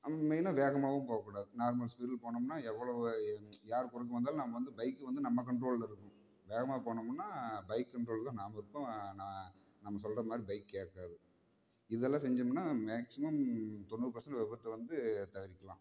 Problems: low volume